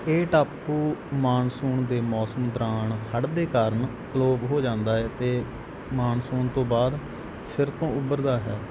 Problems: background sounds at intervals